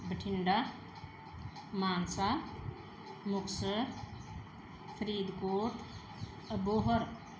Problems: background sounds at intervals